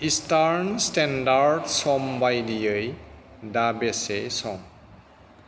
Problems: none marked